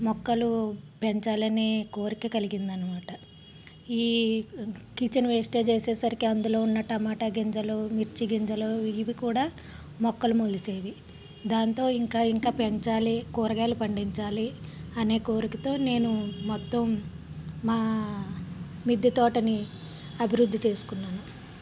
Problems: background sounds at intervals